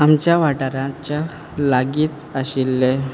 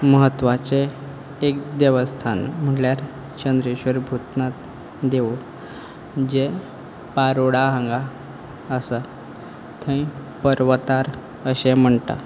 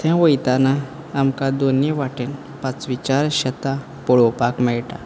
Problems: background sounds at intervals